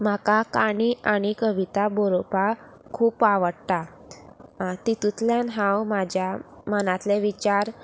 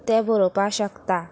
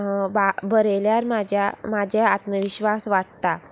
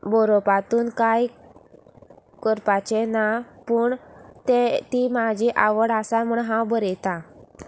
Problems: none marked